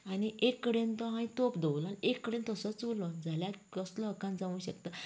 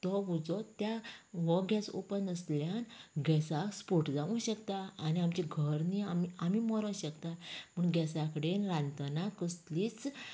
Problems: continuous background conversations